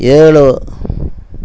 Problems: constant background noise